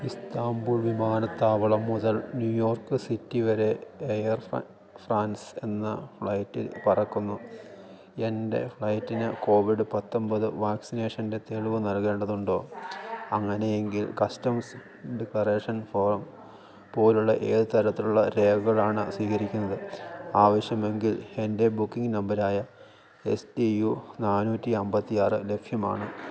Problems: low volume